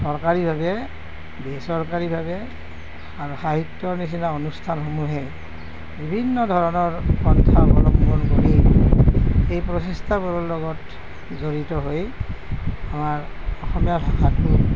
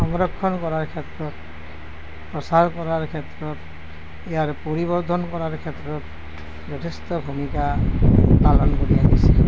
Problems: none marked